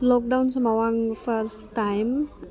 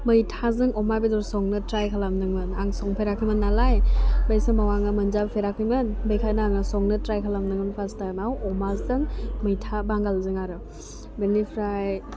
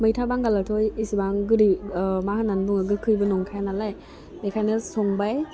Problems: constant background noise